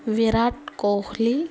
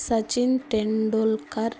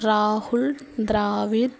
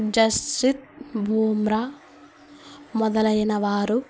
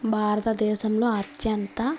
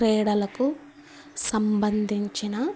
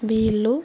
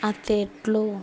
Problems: constant background noise